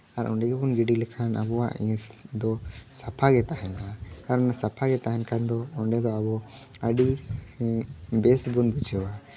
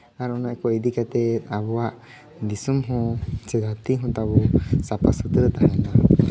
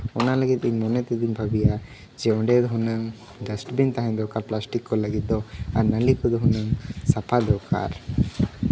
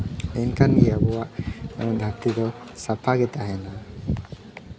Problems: background sounds at intervals, background conversations at intervals